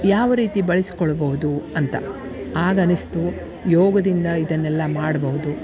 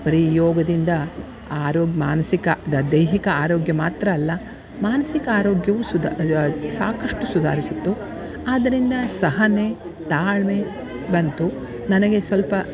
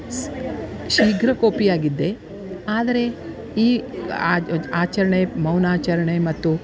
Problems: background sounds at intervals